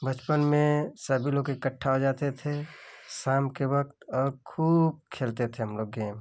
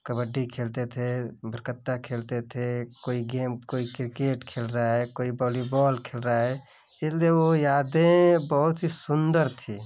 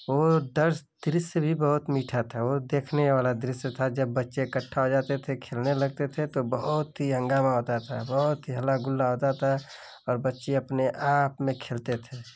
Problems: none marked